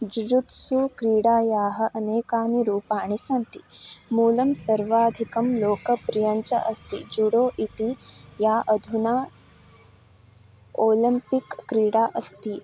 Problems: none marked